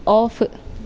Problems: background sounds at intervals